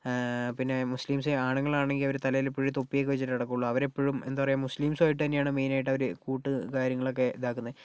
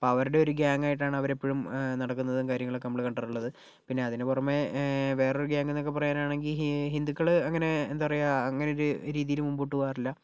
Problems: none marked